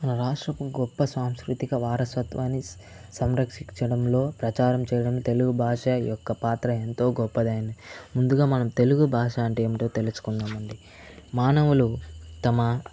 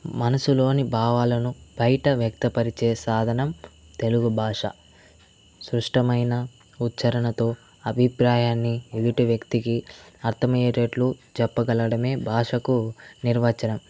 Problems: constant background noise